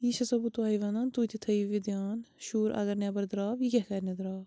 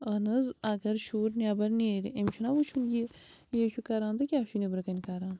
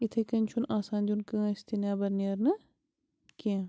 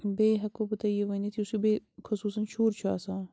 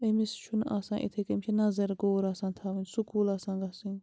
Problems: background sounds at intervals